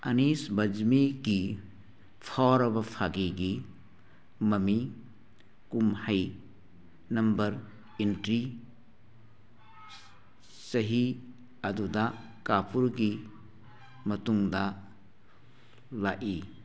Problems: background sounds at intervals